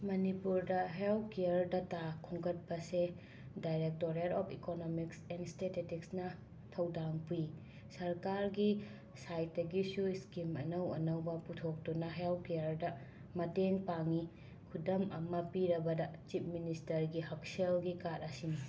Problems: constant background noise